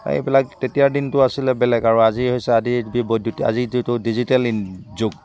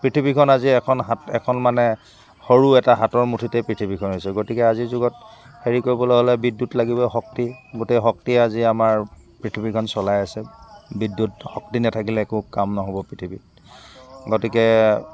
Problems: constant background noise, background conversations at intervals